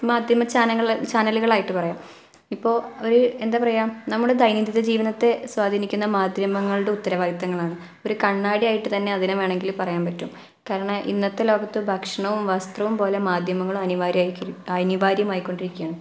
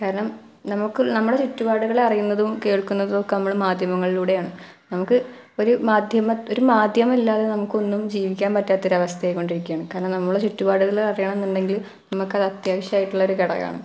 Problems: none marked